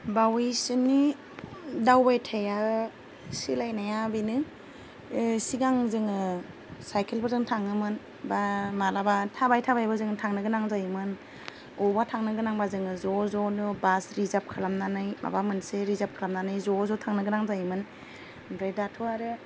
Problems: none marked